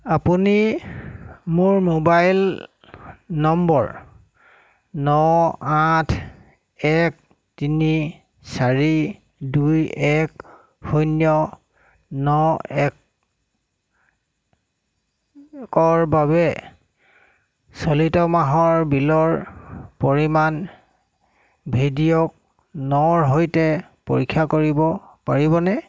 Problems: constant background noise